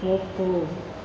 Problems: constant background noise